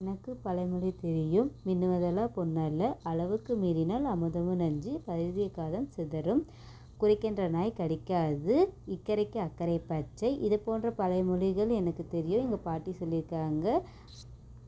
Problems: low volume